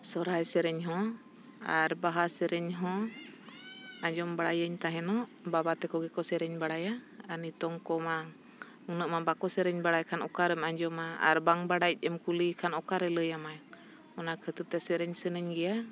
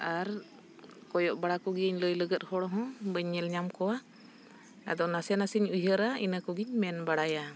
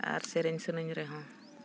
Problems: none marked